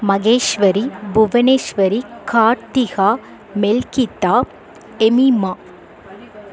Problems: continuous background conversations